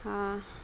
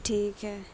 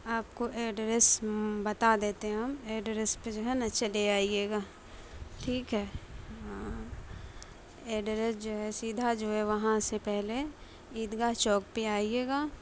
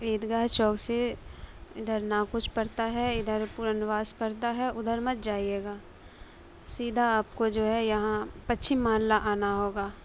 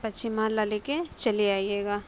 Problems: constant background noise